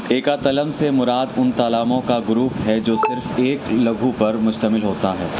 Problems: background sounds at intervals